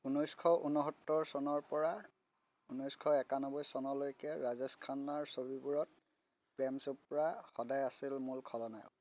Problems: constant background noise